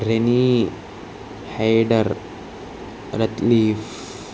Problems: constant background noise